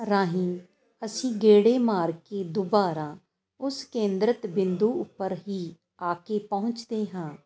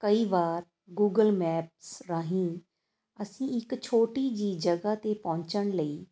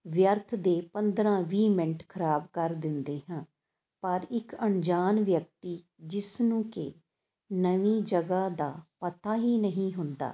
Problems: constant background noise